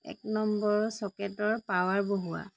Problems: none marked